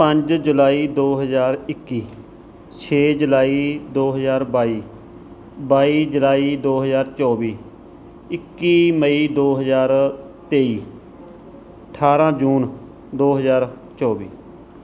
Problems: background sounds at intervals